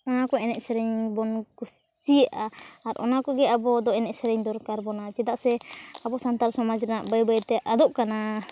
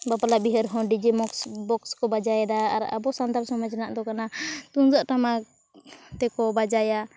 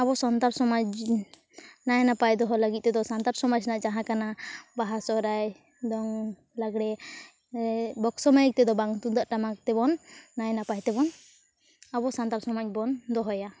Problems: constant background noise, background conversations at intervals